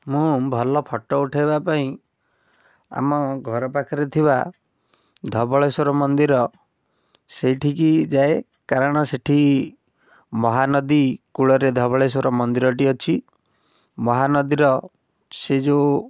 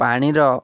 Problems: none marked